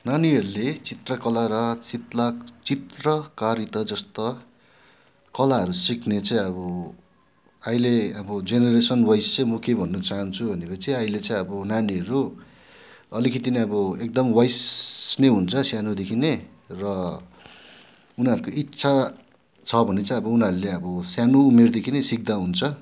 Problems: background sounds at intervals